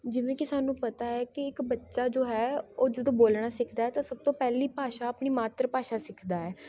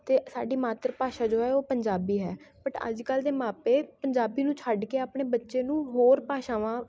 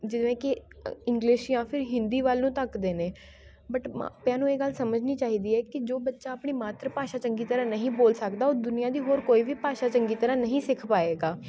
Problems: constant background noise, continuous background conversations